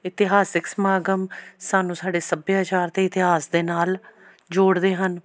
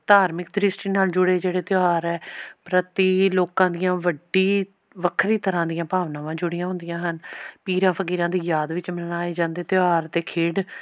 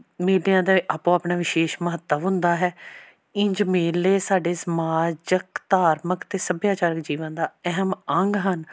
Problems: background sounds at intervals